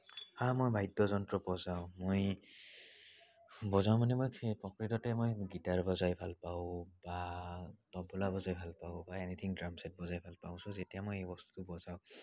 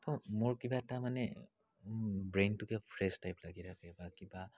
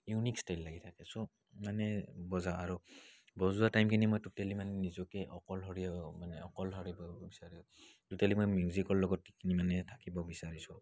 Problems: none marked